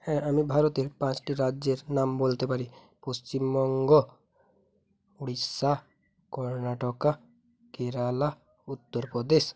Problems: background sounds at intervals